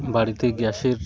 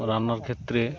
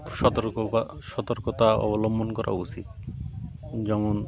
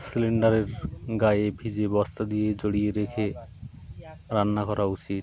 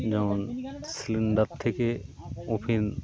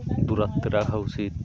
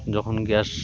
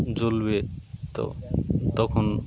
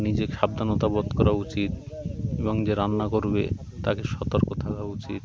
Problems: constant background noise, continuous background conversations